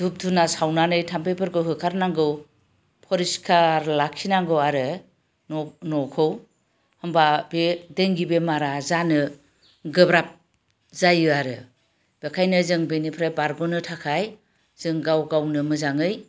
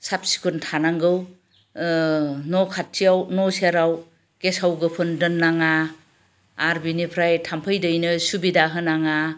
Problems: constant background noise